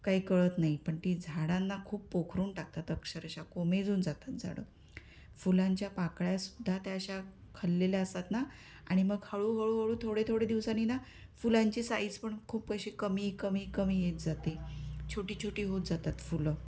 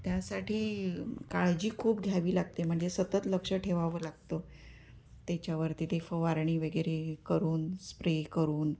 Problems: constant background noise